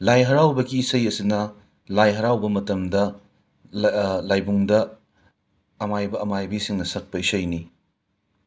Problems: none marked